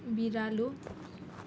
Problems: none marked